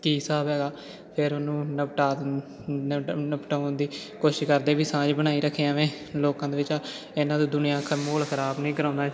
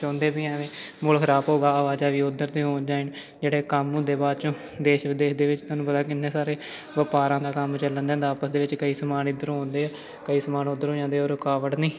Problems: constant background noise